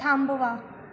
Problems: constant background noise